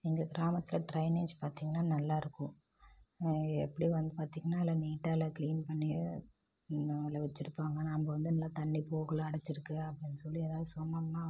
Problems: low volume